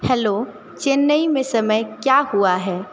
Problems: constant background noise